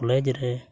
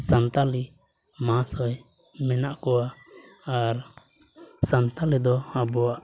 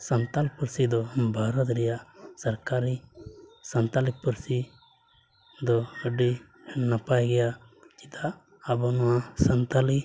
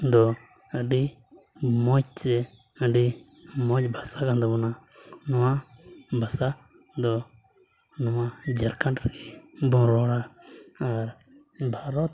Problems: low volume